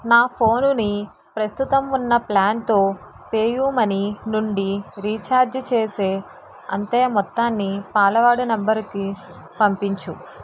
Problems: constant background noise